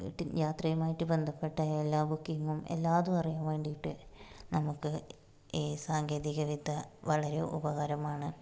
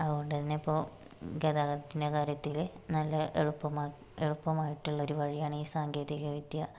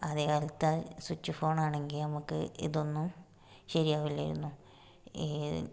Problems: low volume